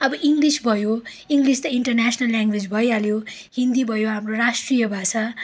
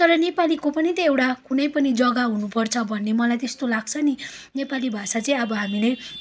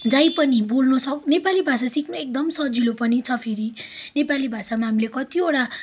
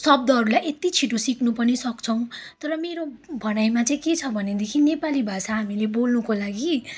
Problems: background sounds at intervals, background conversations at intervals